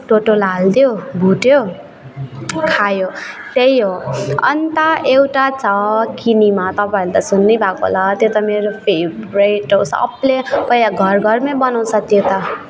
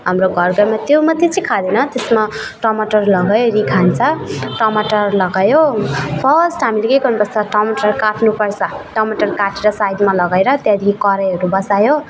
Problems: continuous background conversations